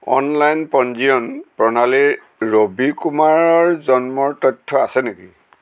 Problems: none marked